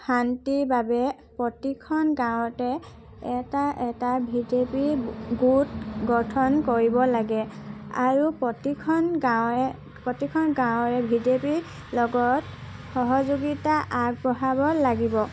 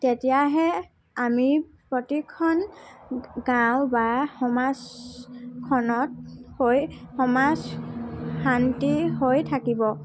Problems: background sounds at intervals